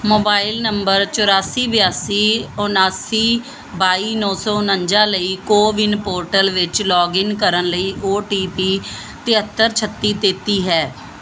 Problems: none marked